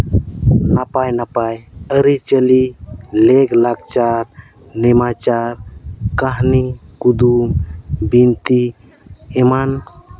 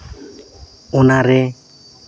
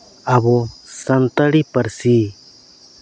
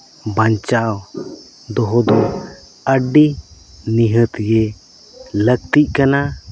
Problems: constant background noise, background conversations at intervals